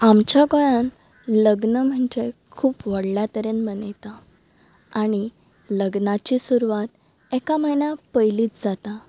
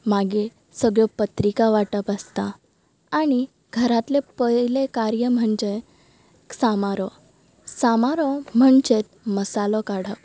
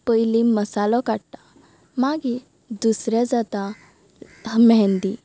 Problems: background sounds at intervals